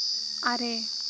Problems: constant background noise, low volume